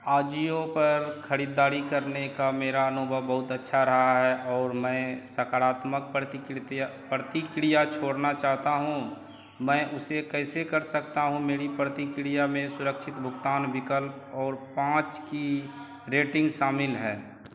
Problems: constant background noise